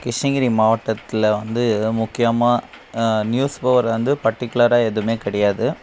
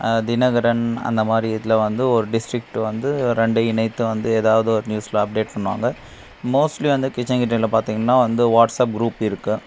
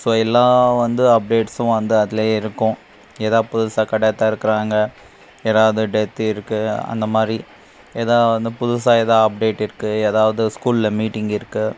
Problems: constant background noise